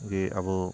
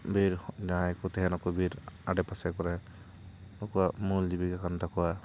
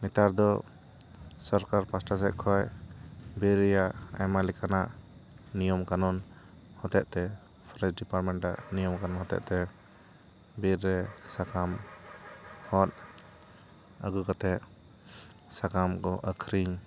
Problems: background sounds at intervals, continuous background conversations